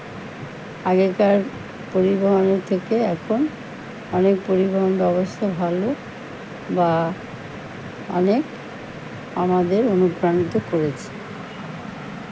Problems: none marked